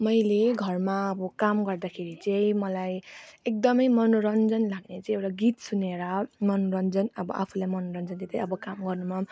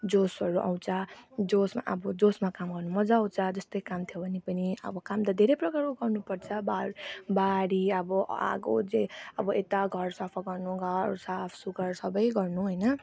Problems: constant background noise